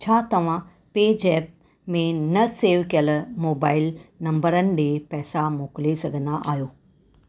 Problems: none marked